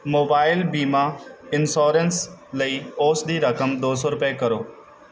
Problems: background sounds at intervals